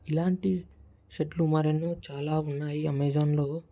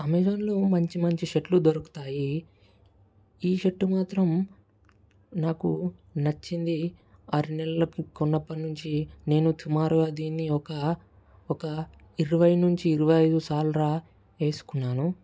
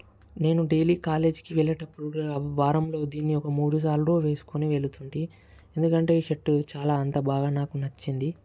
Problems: none marked